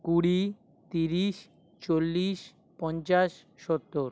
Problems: none marked